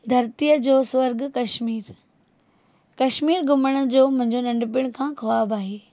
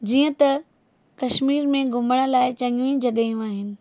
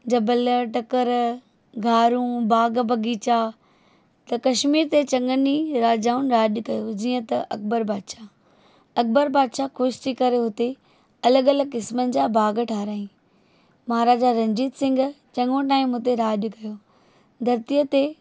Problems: none marked